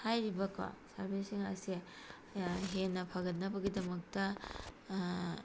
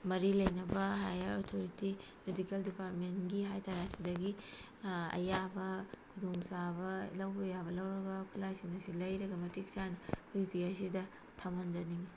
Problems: constant background noise